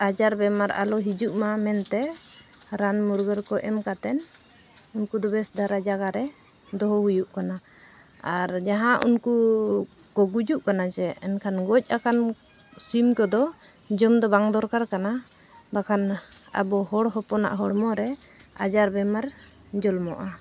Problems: constant background noise